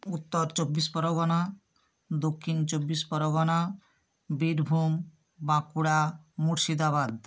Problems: constant background noise